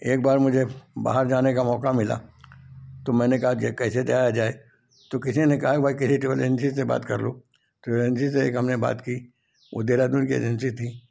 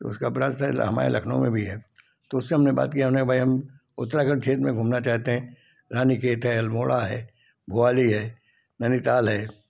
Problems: none marked